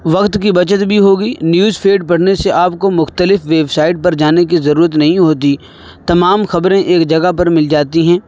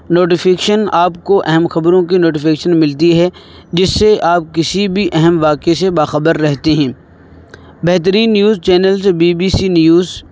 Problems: constant background noise